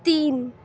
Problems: background sounds at intervals